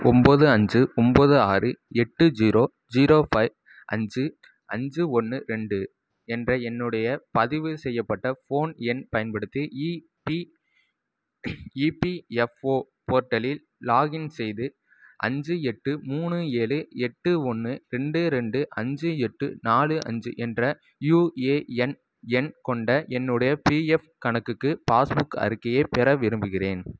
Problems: none marked